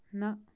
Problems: background sounds at intervals